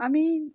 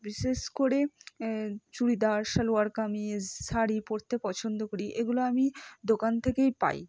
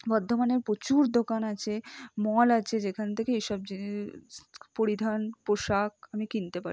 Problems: low volume